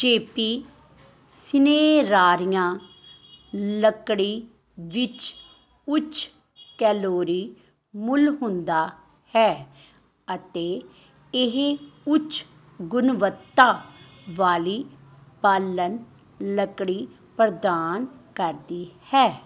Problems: constant background noise